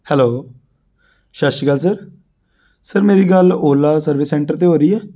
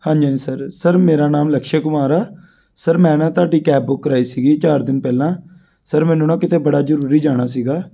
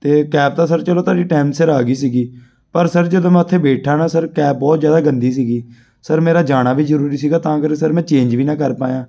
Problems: none marked